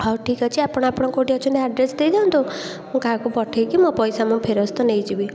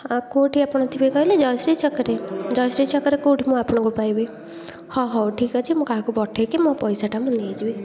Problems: continuous background conversations